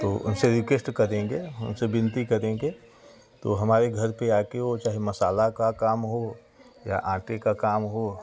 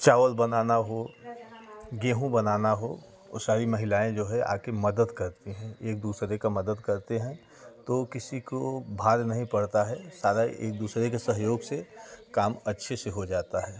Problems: none marked